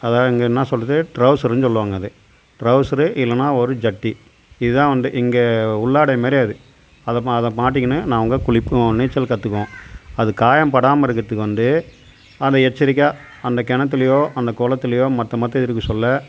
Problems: constant background noise